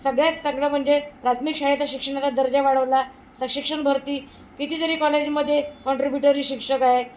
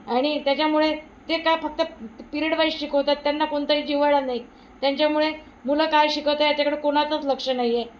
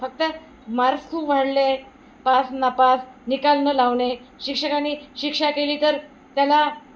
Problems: none marked